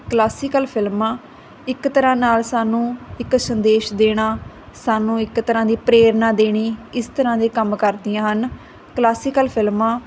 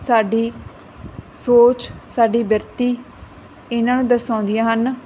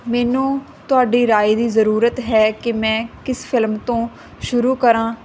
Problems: constant background noise